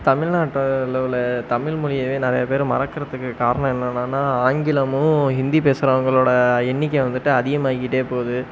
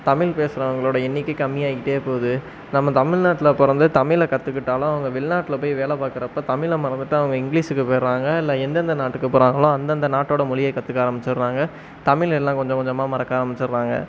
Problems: none marked